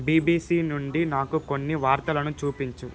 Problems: constant background noise